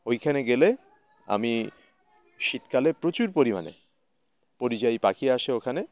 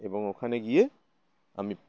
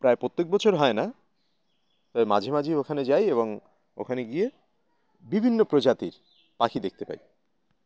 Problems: none marked